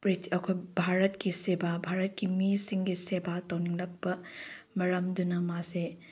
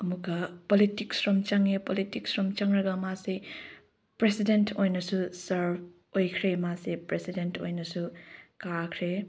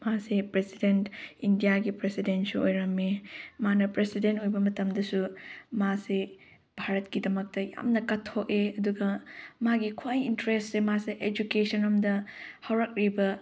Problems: none marked